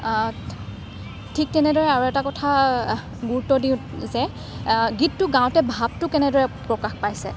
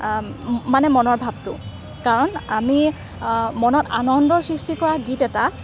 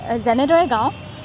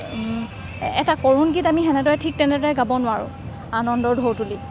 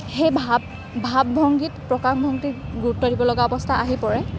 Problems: constant background noise